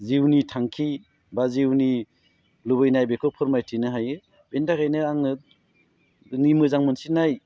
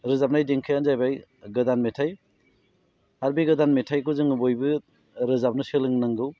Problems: none marked